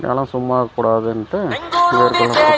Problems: background sounds at intervals